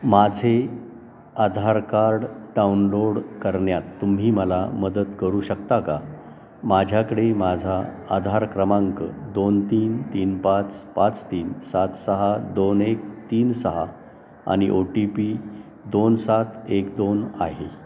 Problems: constant background noise, continuous background conversations, echo